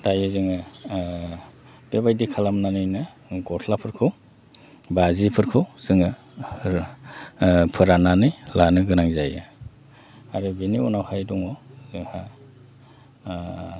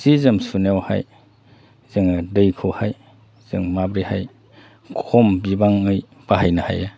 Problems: none marked